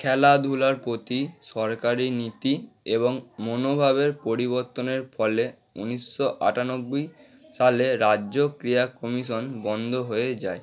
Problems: continuous background conversations